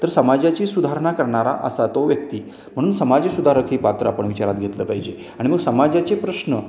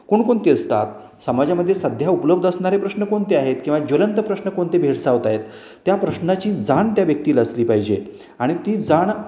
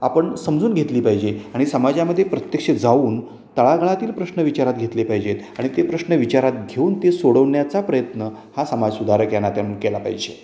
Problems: none marked